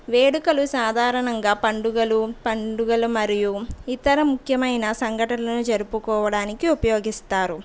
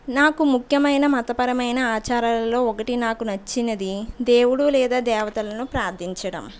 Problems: background sounds at intervals